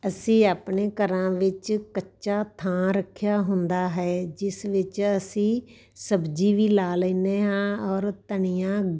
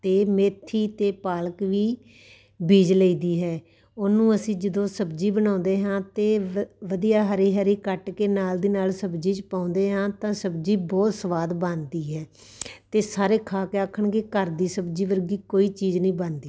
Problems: background sounds at intervals